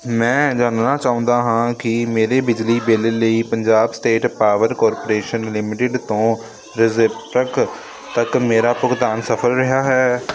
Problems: constant background noise